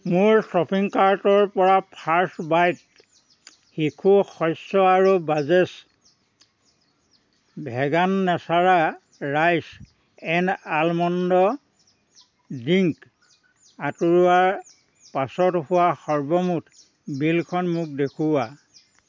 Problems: none marked